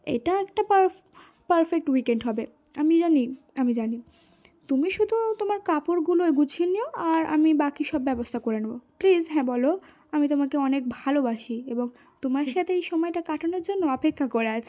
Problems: background sounds at intervals